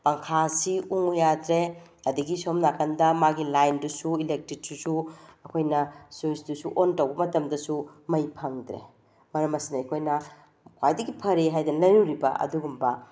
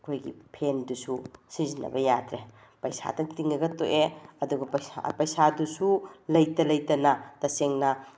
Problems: none marked